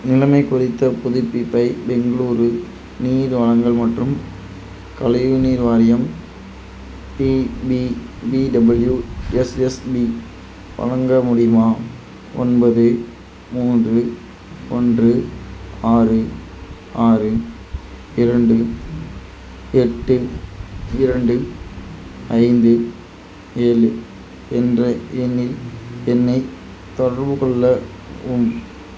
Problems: constant background noise